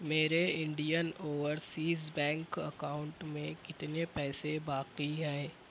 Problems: constant background noise